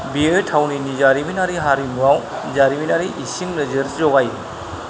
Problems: constant background noise